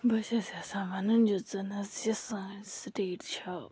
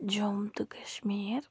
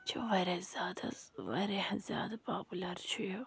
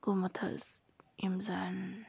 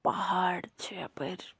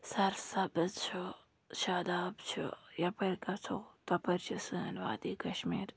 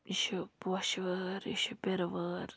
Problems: low volume